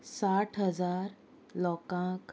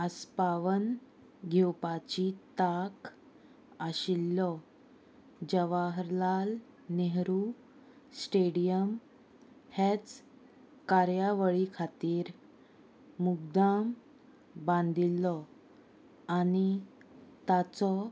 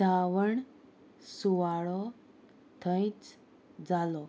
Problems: none marked